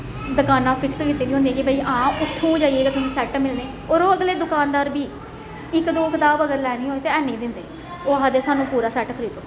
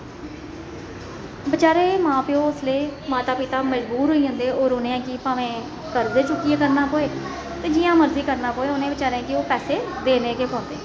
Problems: echo